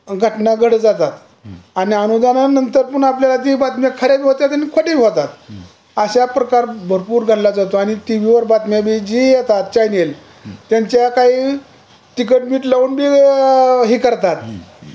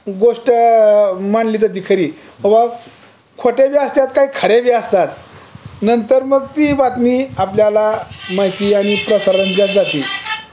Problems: background sounds at intervals, continuous background conversations